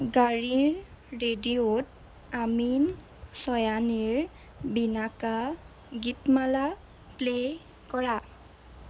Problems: constant background noise